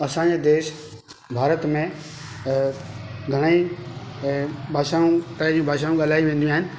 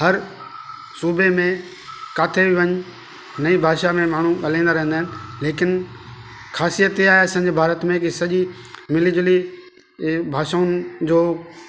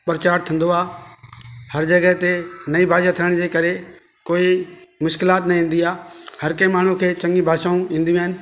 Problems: constant background noise